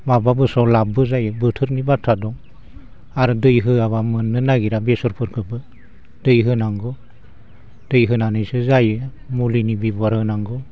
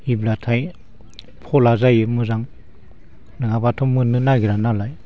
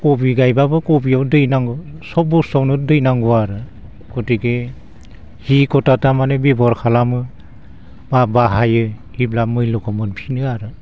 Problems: none marked